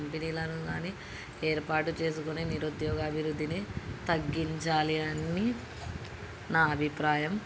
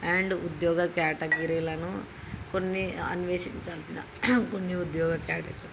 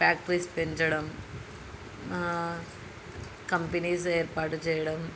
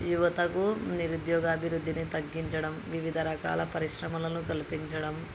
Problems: constant background noise, background conversations at intervals